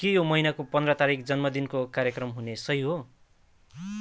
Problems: none marked